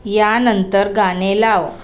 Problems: constant background noise, continuous background conversations